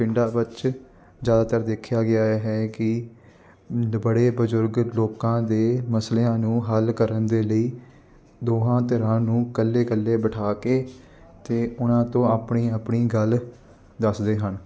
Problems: constant background noise